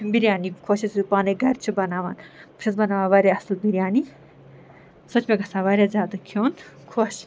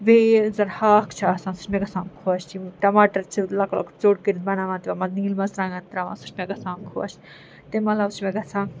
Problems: constant background noise